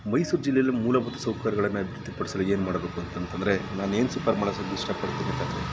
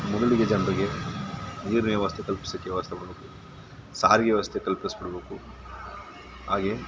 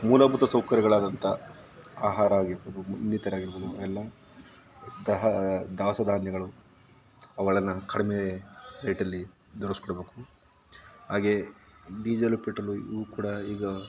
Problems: background sounds at intervals